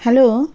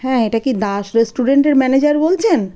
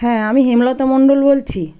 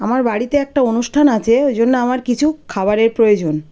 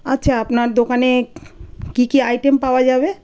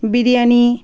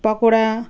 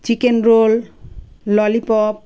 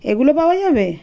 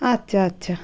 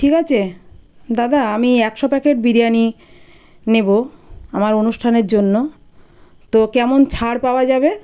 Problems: none marked